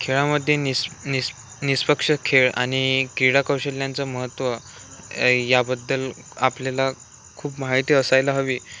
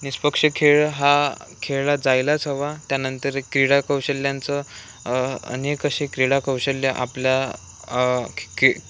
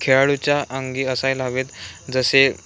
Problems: none marked